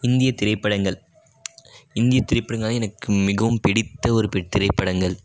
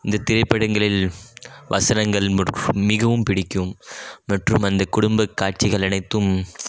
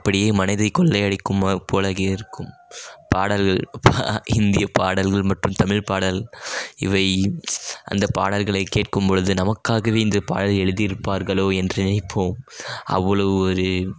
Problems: none marked